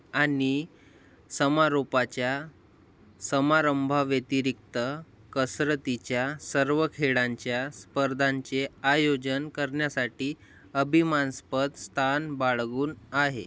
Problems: none marked